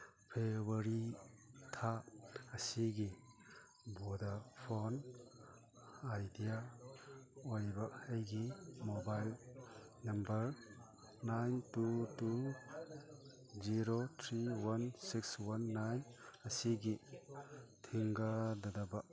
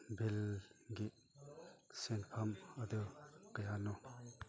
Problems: background sounds at intervals, background conversations at intervals